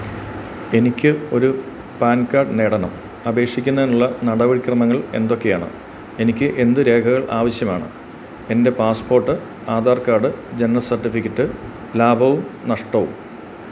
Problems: constant background noise